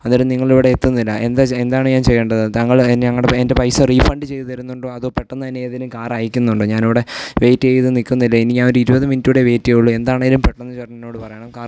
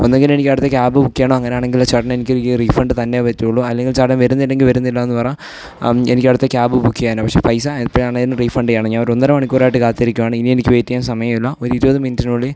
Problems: background sounds at intervals